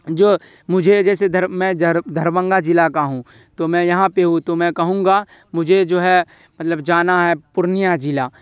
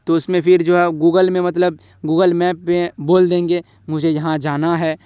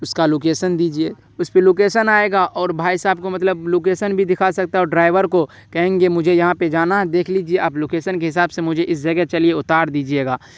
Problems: none marked